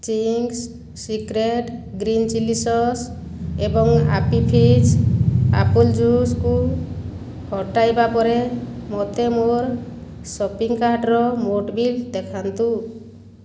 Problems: background sounds at intervals